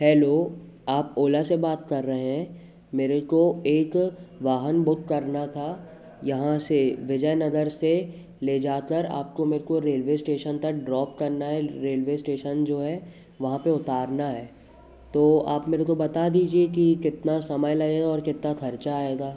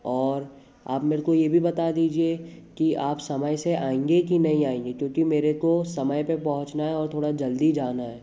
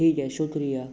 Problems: constant background noise, background conversations at intervals